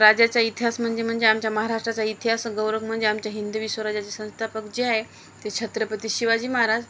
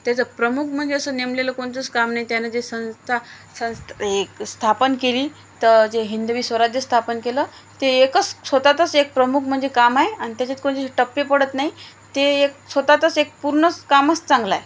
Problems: constant background noise